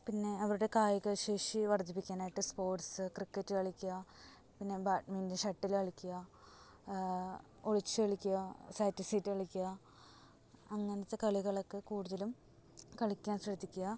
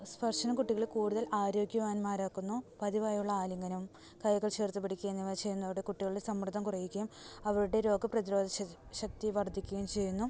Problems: background sounds at intervals, low volume